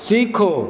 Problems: constant background noise, echo